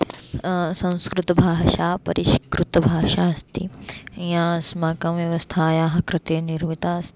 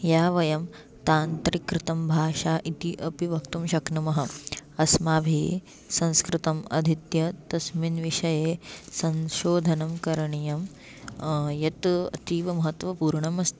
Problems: background sounds at intervals